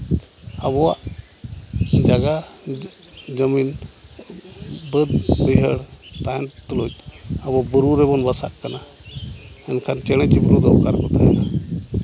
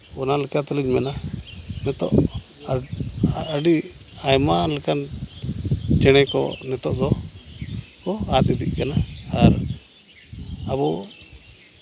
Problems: none marked